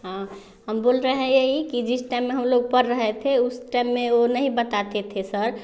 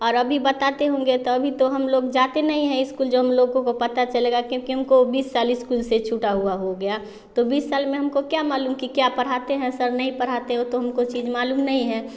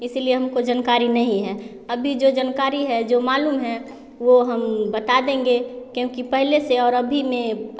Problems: background sounds at intervals, continuous background conversations